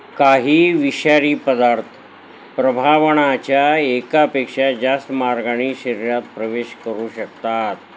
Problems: constant background noise